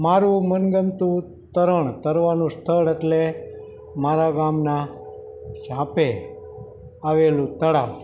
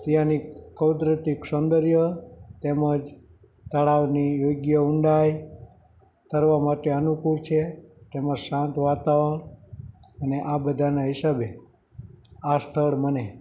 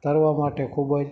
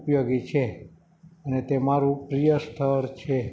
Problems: background sounds at intervals